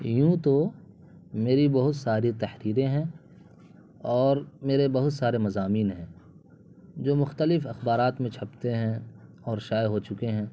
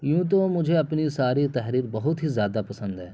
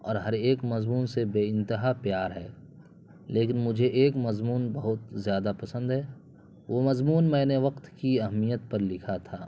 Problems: constant background noise